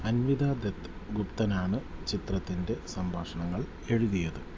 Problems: low volume